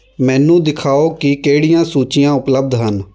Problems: background conversations at intervals